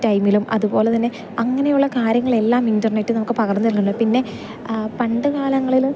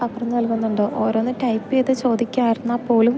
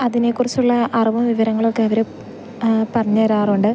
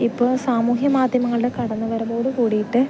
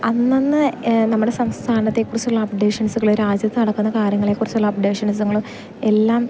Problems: background sounds at intervals